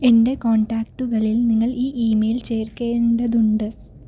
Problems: low volume